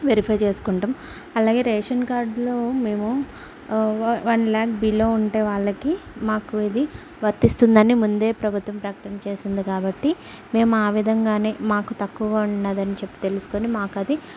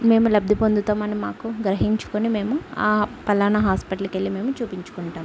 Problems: background sounds at intervals